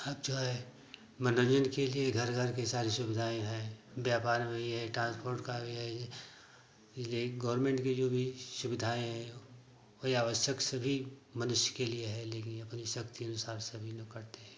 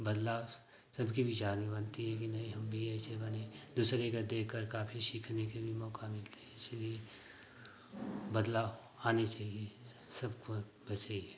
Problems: constant background noise